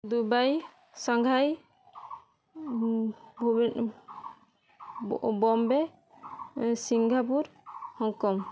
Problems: constant background noise